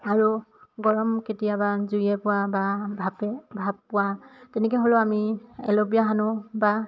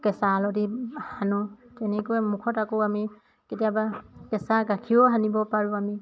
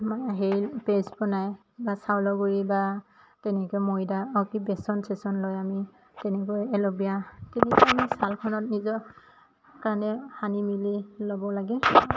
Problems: constant background noise, background conversations at intervals